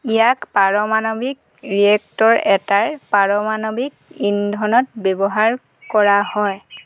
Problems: constant background noise